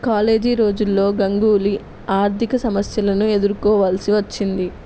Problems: none marked